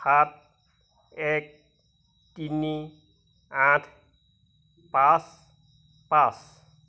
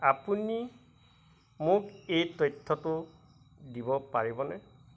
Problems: constant background noise